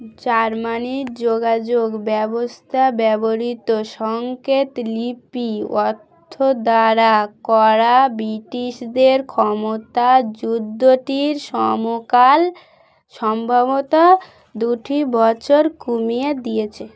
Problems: background sounds at intervals, continuous background conversations